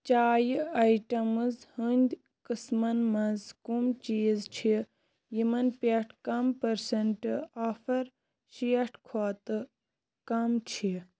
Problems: constant background noise